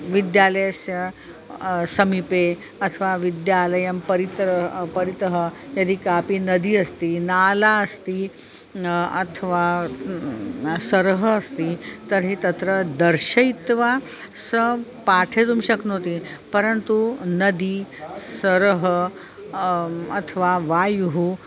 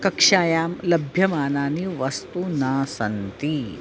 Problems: constant background noise, continuous background conversations